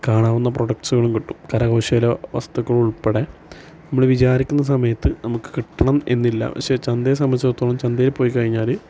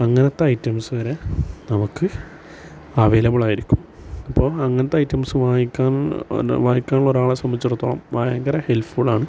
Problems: constant background noise